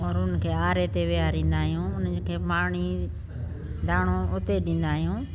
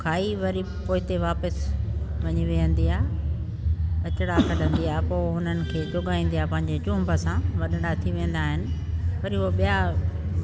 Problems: constant background noise